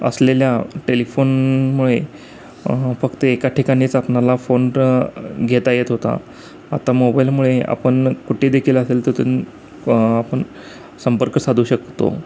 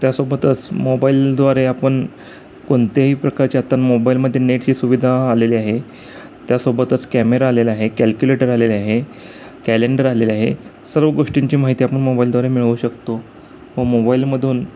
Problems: constant background noise